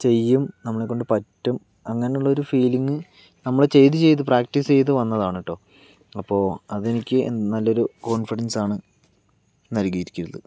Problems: none marked